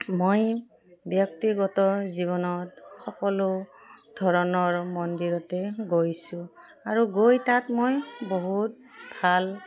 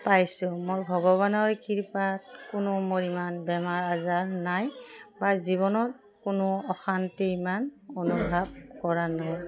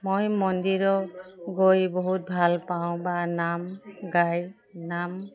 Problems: none marked